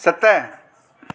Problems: constant background noise, echo